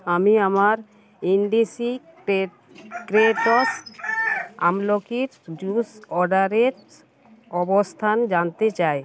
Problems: constant background noise